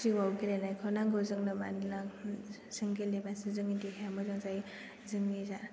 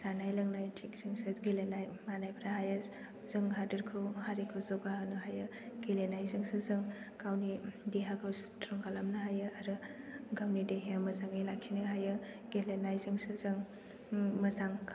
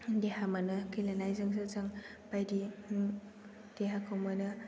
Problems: background sounds at intervals